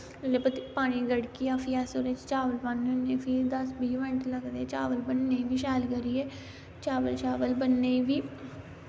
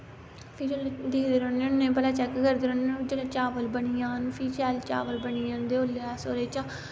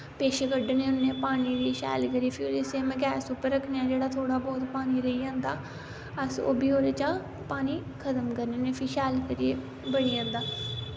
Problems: constant background noise